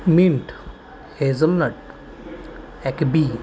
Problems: constant background noise